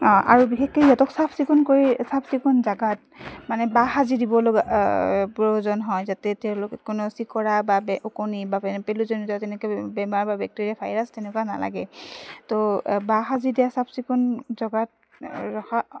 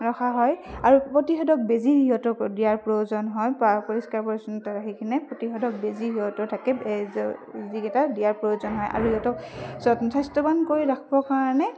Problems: none marked